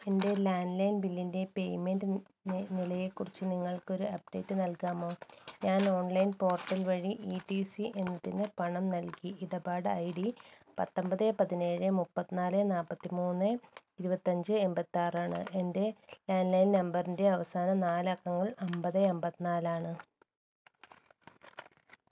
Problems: none marked